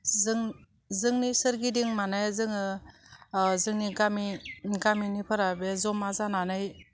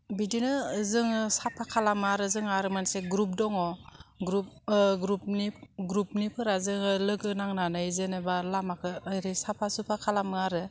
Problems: none marked